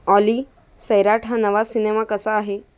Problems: background sounds at intervals